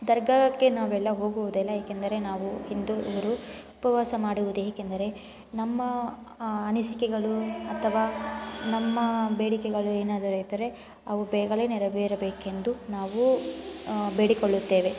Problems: constant background noise